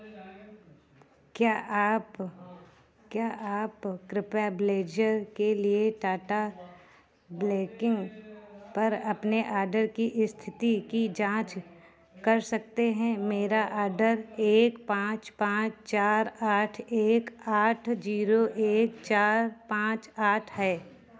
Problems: none marked